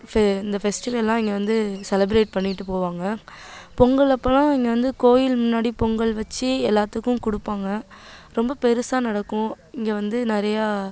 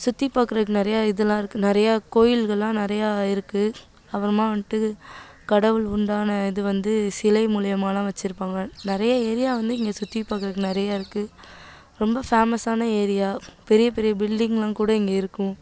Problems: none marked